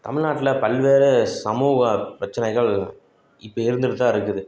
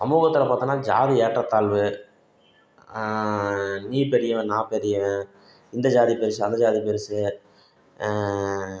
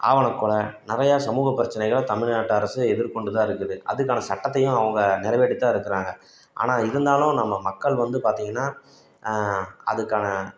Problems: constant background noise